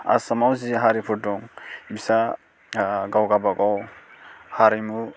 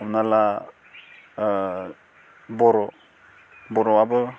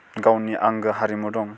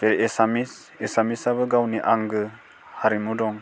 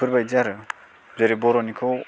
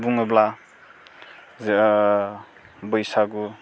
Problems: constant background noise